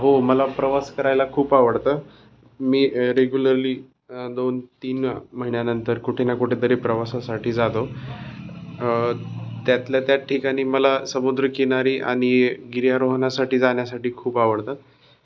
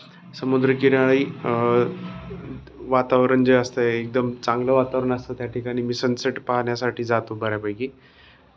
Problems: constant background noise, background conversations at intervals